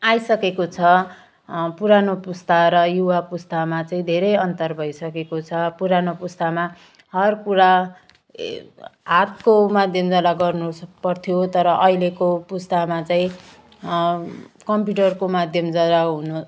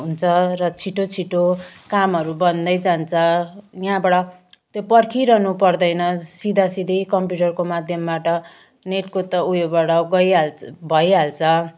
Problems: none marked